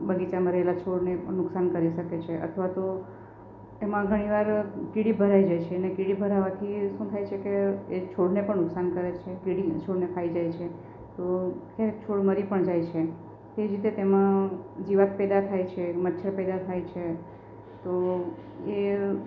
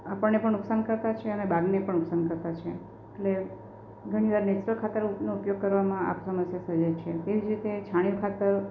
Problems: none marked